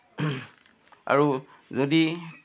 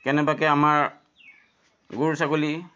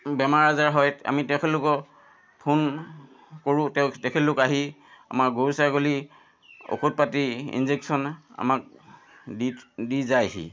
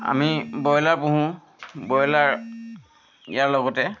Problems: constant background noise